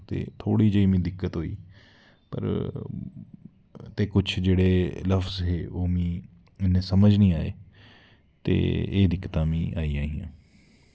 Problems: none marked